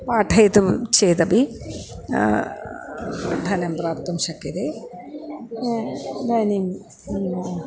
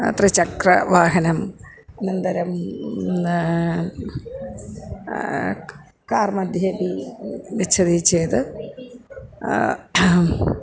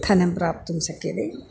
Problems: background sounds at intervals, background conversations at intervals